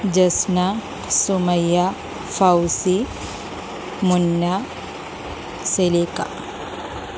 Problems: constant background noise